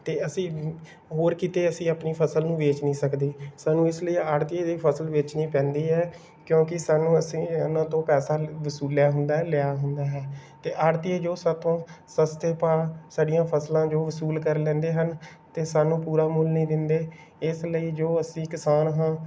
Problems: background sounds at intervals